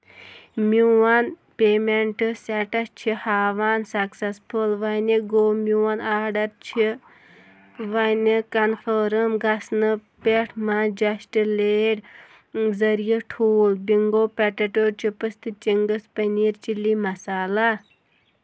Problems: constant background noise